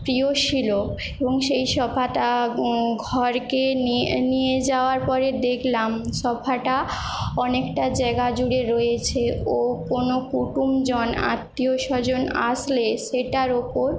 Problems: none marked